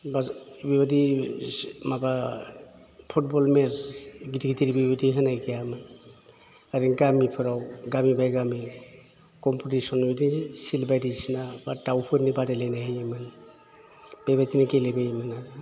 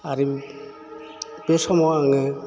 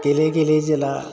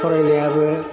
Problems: none marked